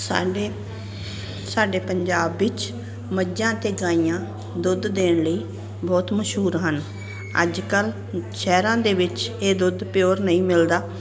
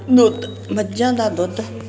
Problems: none marked